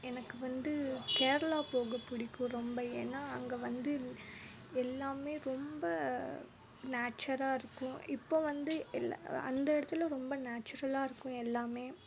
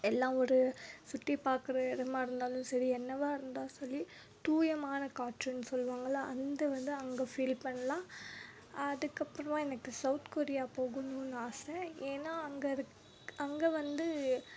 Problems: background sounds at intervals